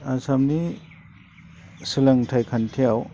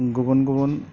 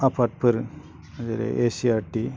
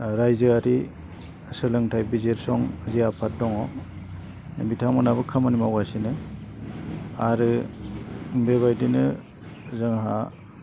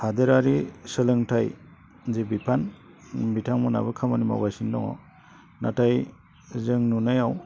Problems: low volume